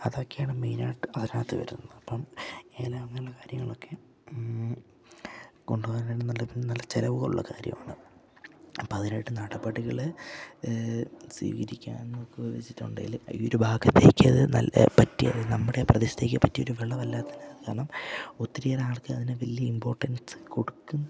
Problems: background sounds at intervals, low volume